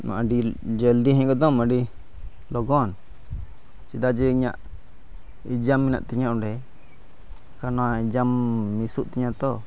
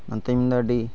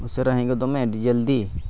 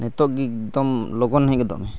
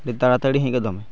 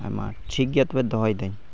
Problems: background sounds at intervals